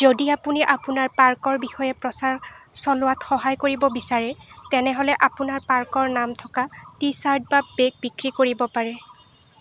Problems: constant background noise